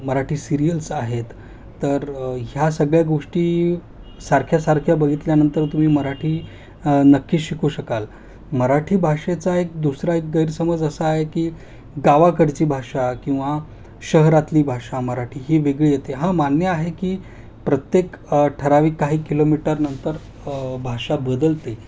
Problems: constant background noise